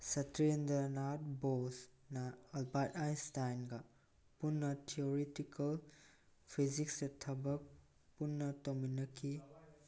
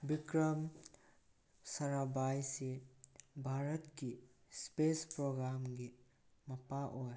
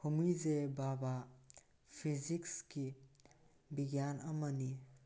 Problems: background conversations at intervals